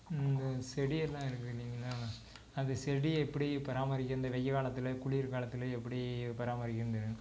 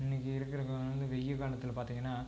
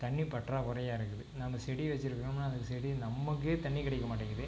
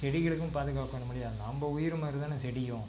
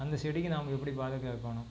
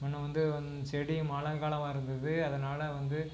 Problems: constant background noise, low volume